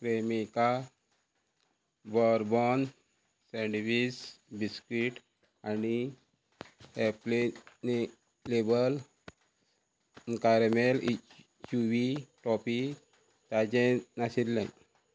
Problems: background sounds at intervals